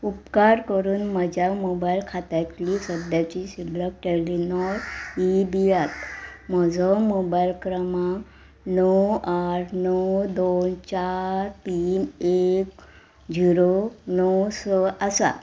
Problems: background sounds at intervals